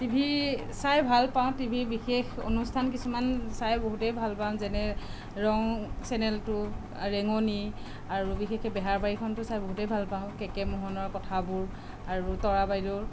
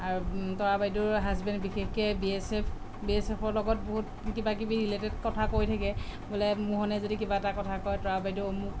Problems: none marked